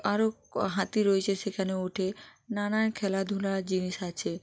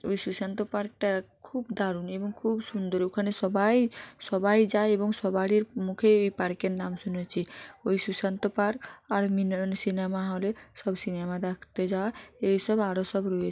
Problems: none marked